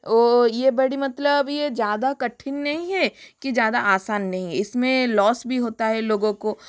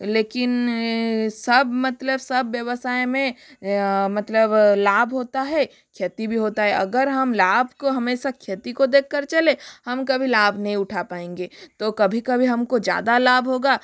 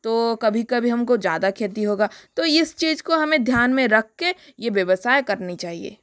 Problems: none marked